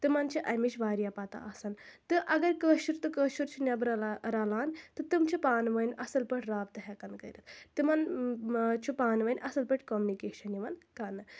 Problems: constant background noise